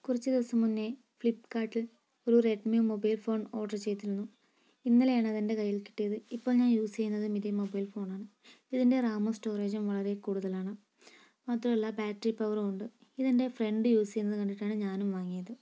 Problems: low volume